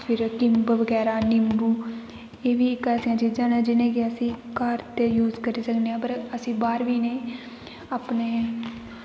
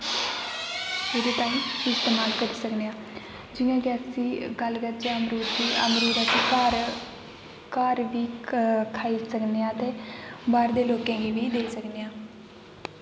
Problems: constant background noise, background conversations at intervals